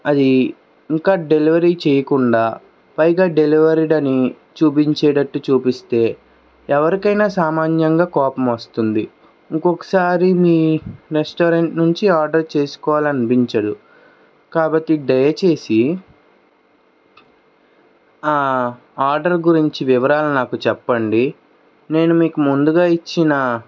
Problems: background sounds at intervals